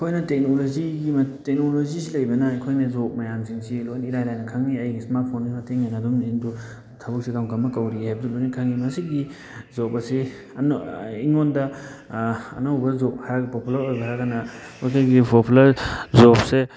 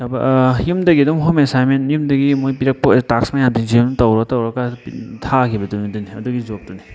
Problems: constant background noise